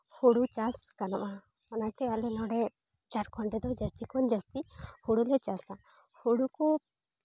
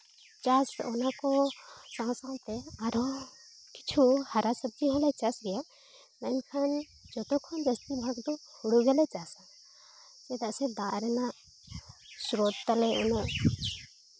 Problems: background sounds at intervals